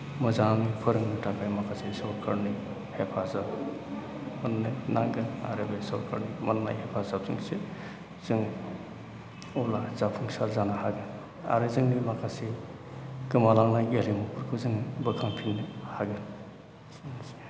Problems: constant background noise